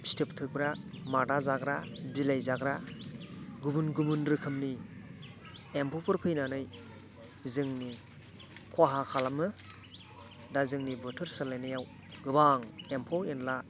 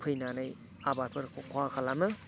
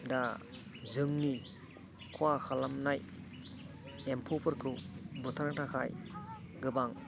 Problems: continuous background conversations, low volume